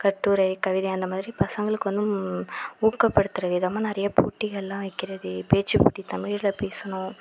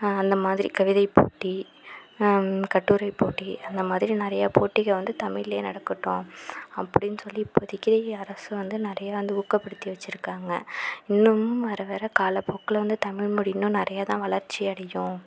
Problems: constant background noise